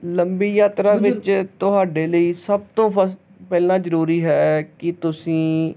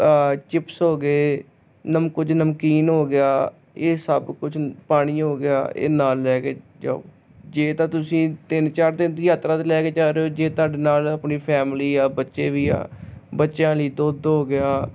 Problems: constant background noise